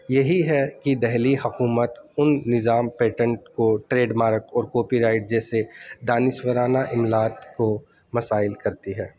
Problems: constant background noise